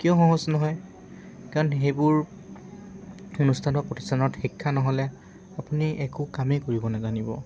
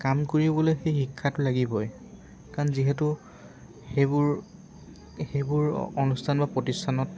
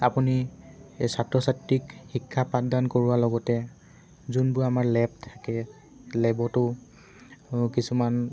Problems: background sounds at intervals